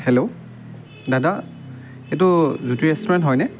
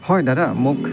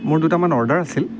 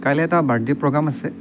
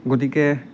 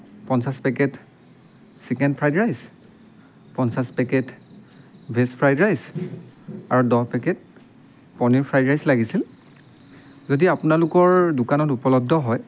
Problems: background sounds at intervals